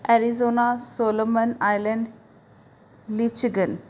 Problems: background sounds at intervals